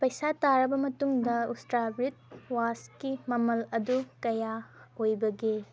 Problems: background sounds at intervals, background conversations at intervals